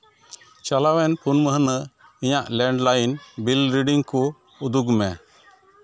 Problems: background sounds at intervals, continuous background conversations